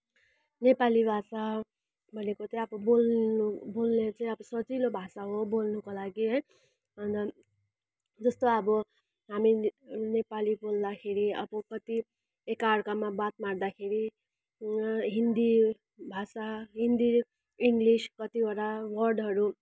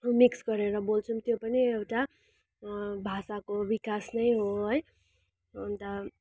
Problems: none marked